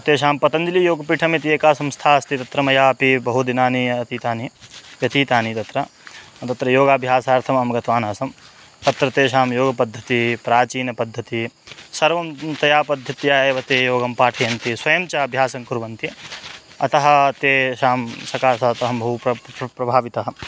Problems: constant background noise